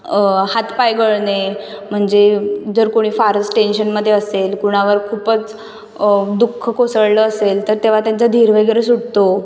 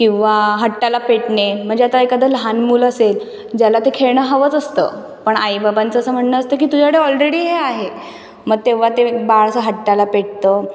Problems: none marked